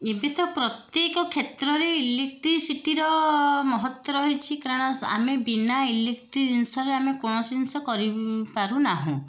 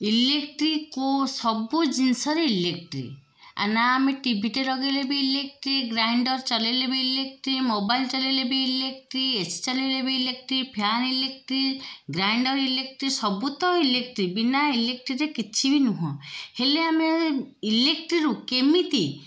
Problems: none marked